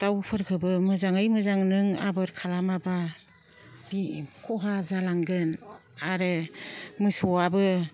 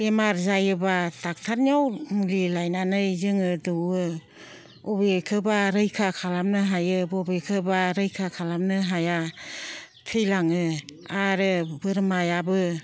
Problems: low volume